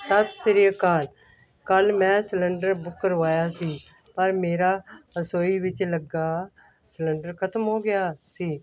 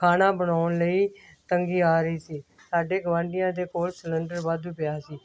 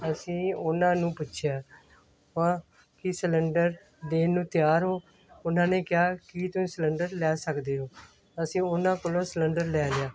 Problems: none marked